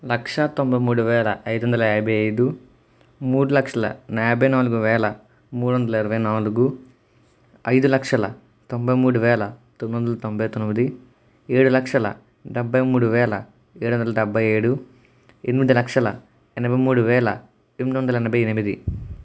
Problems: none marked